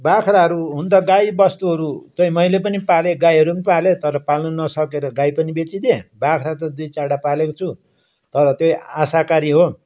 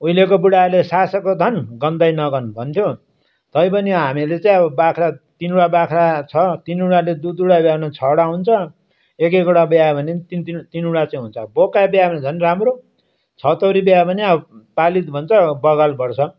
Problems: background sounds at intervals